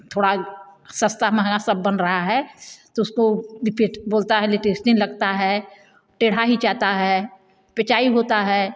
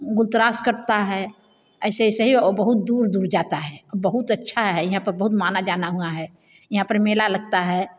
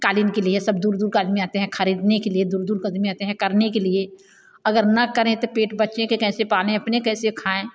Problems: none marked